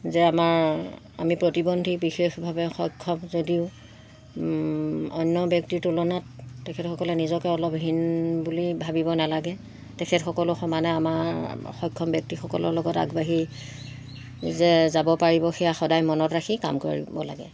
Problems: constant background noise